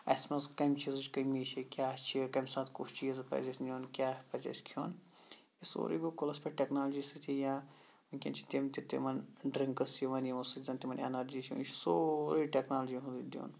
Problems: none marked